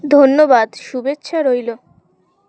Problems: constant background noise